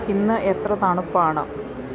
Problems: none marked